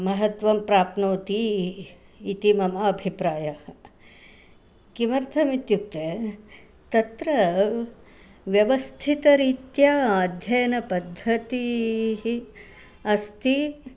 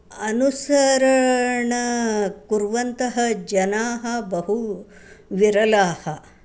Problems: none marked